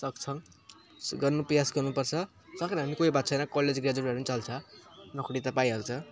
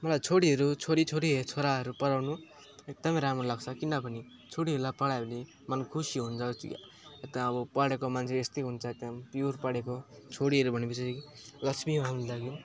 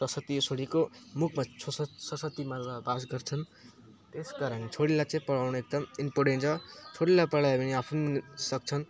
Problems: background sounds at intervals